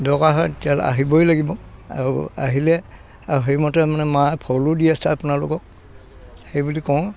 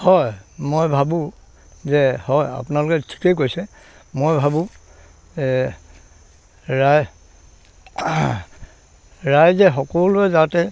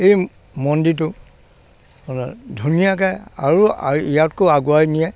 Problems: background sounds at intervals, background conversations at intervals